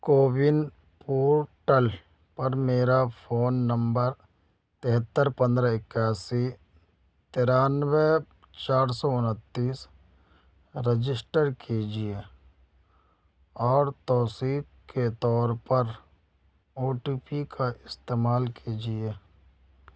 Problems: background sounds at intervals